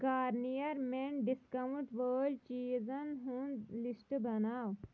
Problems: background sounds at intervals